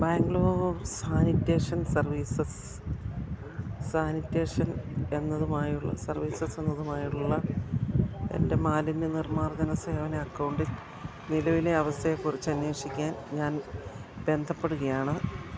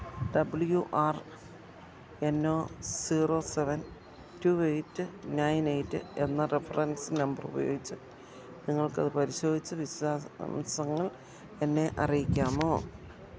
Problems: constant background noise, low volume